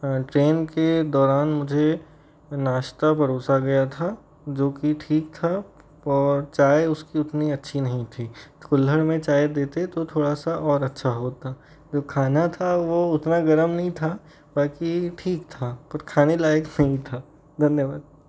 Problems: background sounds at intervals